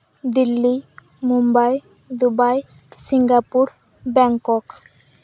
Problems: none marked